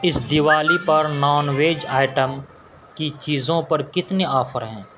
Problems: constant background noise